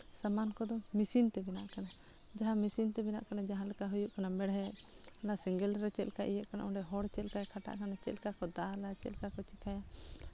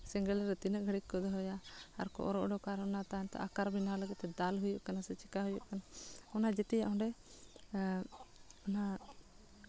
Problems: background sounds at intervals